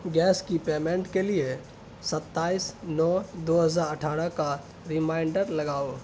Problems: constant background noise